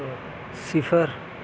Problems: none marked